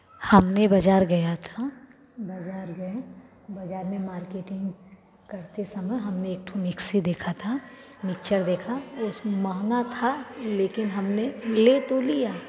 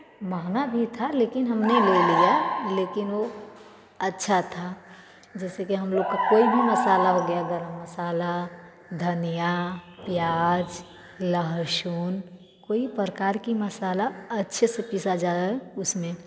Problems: background sounds at intervals, continuous background conversations, echo